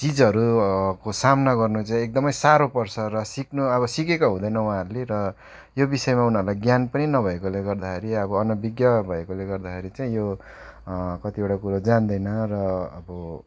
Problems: background sounds at intervals